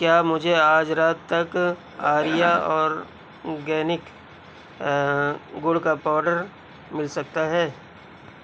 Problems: none marked